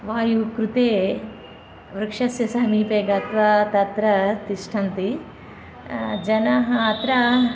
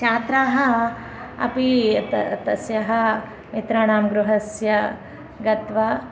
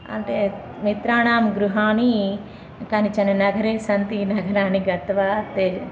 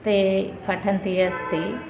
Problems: none marked